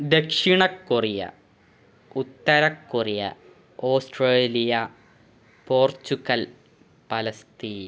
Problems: background sounds at intervals